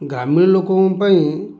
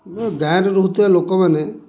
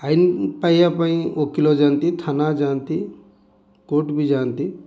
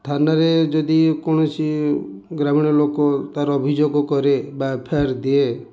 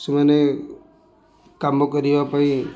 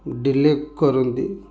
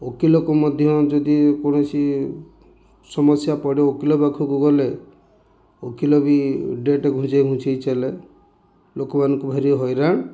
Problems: none marked